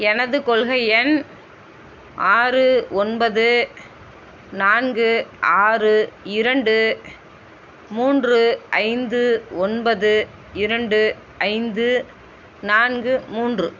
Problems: constant background noise